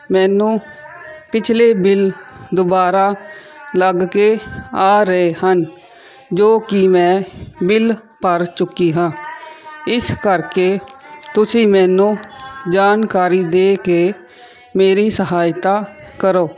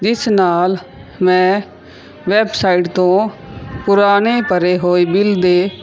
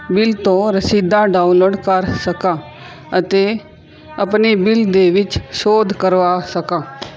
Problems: background sounds at intervals